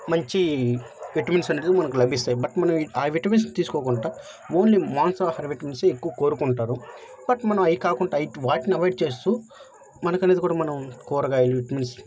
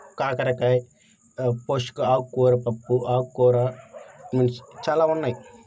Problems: background conversations at intervals